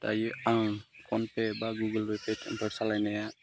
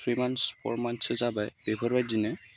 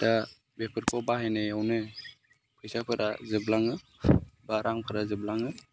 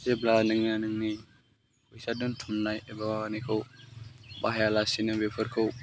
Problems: low volume